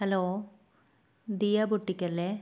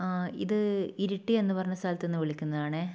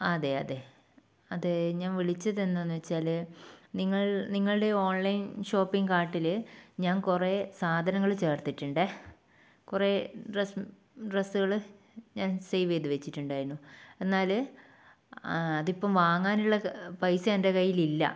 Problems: none marked